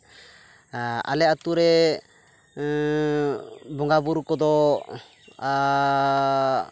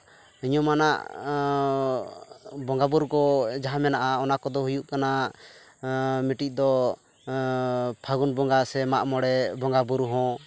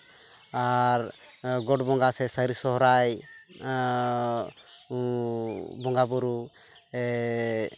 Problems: constant background noise